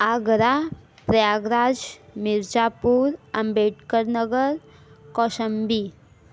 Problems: background sounds at intervals